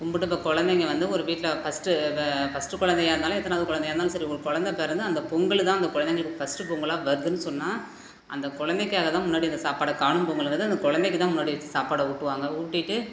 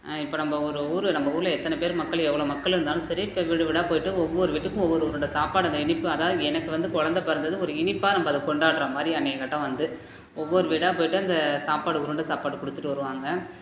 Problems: none marked